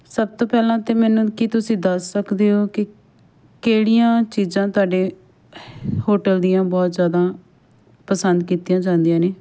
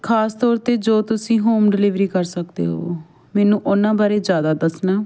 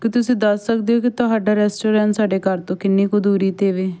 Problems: background sounds at intervals